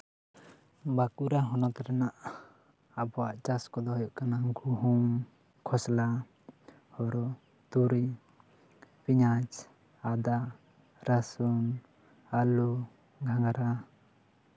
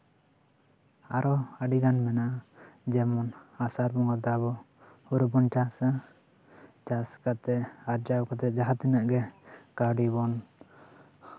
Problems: none marked